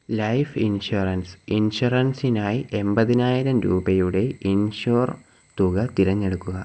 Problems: none marked